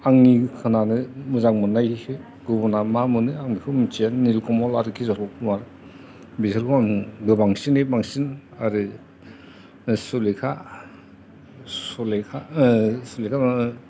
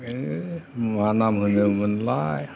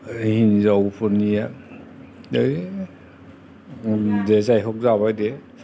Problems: constant background noise, background conversations at intervals